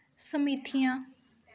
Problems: none marked